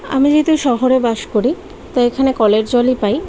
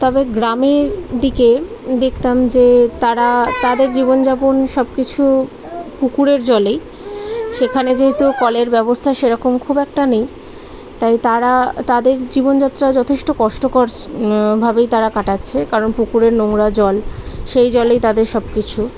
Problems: constant background noise, continuous background conversations